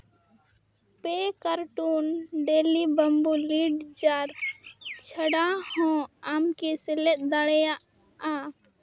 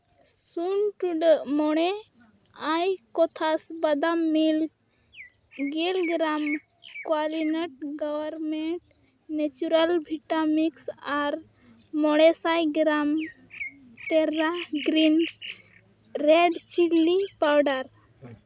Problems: background sounds at intervals, background conversations at intervals